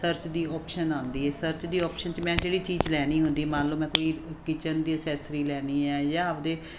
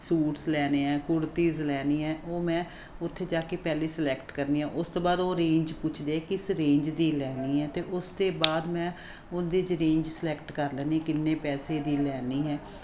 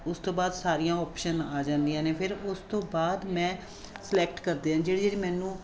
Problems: none marked